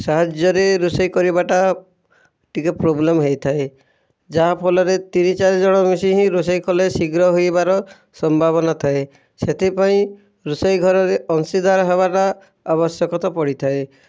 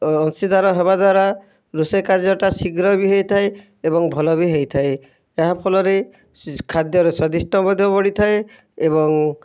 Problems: none marked